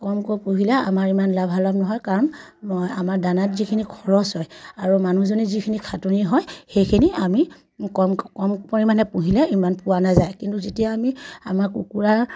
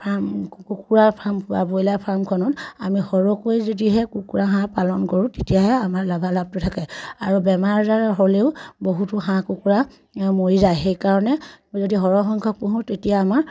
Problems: none marked